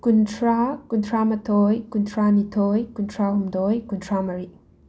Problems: none marked